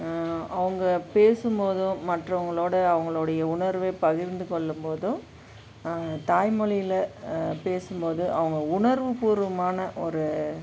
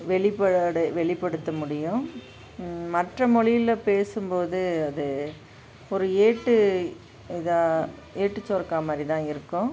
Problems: background sounds at intervals